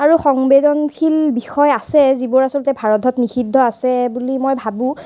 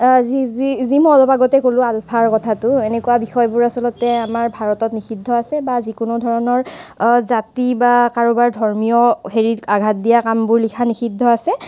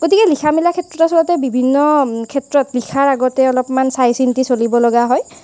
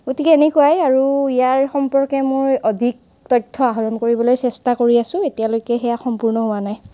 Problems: constant background noise